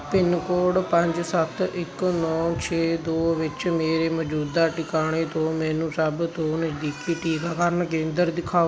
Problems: constant background noise